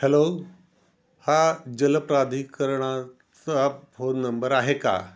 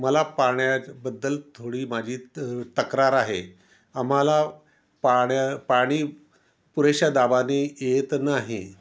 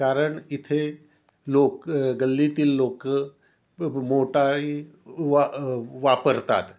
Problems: none marked